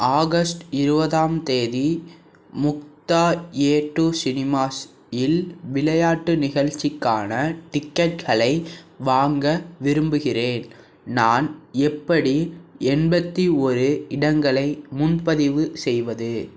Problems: none marked